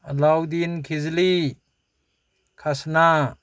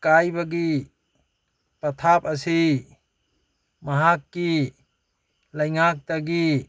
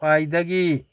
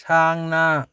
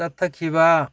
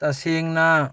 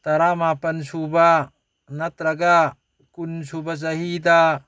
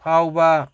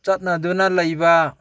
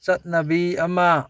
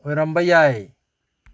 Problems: background conversations at intervals